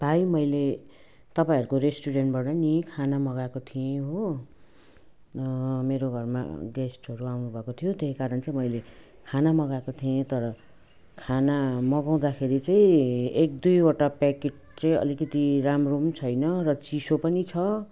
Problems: none marked